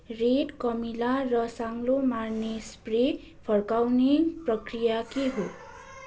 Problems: constant background noise